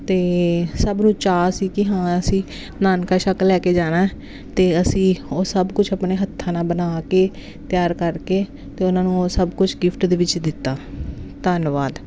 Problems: constant background noise